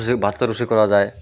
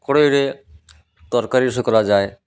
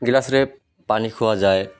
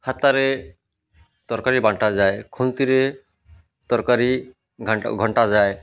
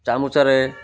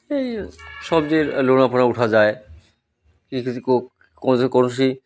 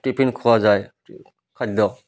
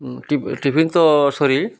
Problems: none marked